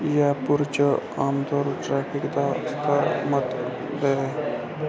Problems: constant background noise